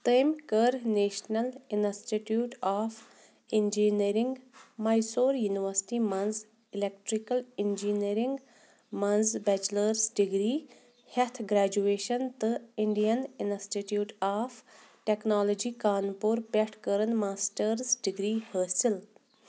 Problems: none marked